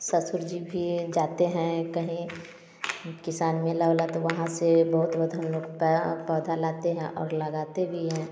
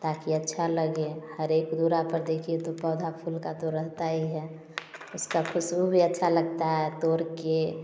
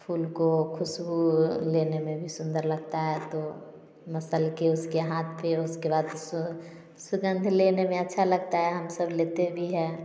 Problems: none marked